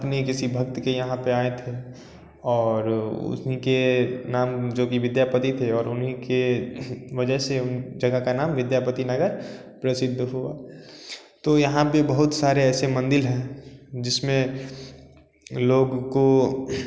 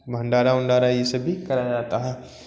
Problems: constant background noise